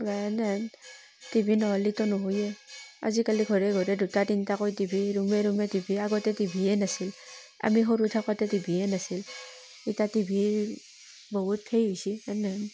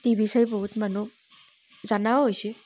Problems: constant background noise